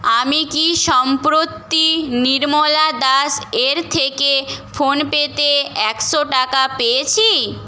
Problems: constant background noise